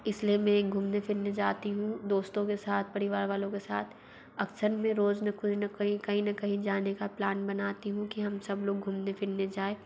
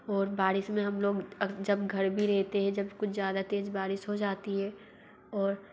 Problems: background sounds at intervals, low volume